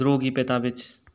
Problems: low volume